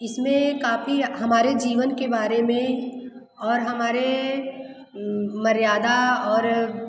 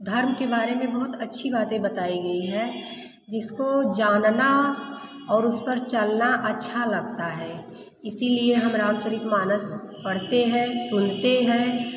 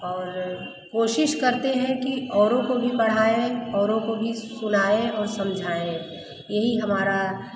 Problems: constant background noise, echo